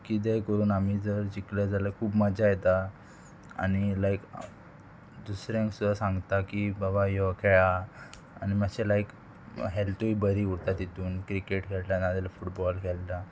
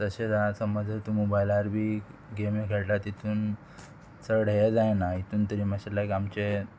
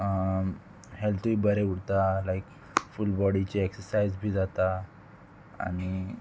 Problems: constant background noise, background conversations at intervals